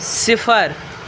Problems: constant background noise